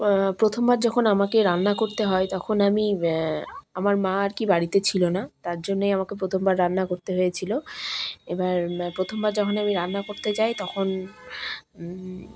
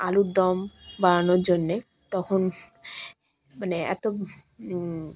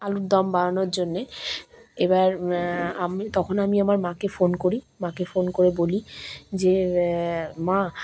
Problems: constant background noise, background conversations at intervals